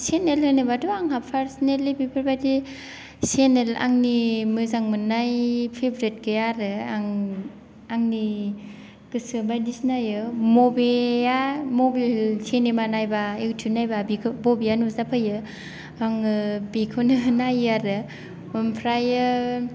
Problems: none marked